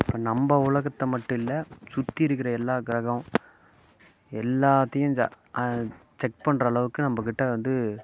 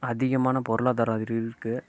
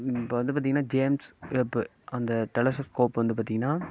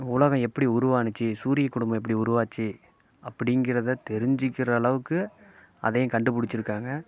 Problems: none marked